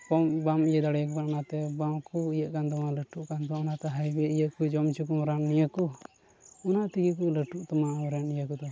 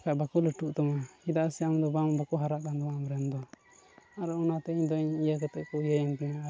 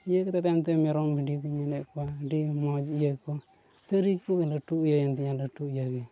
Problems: constant background noise, low volume